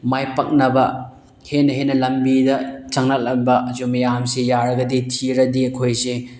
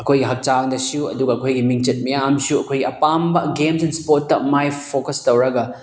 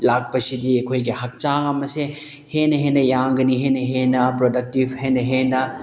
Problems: none marked